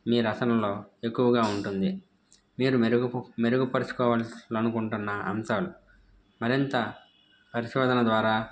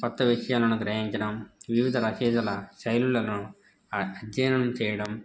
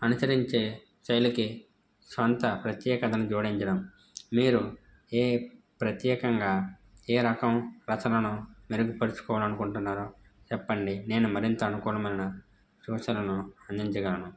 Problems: background sounds at intervals